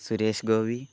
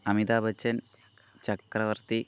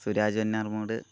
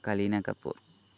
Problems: none marked